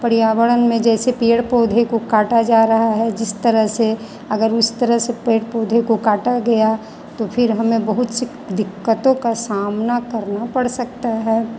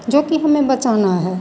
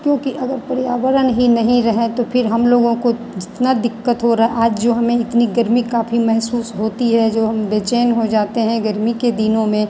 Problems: none marked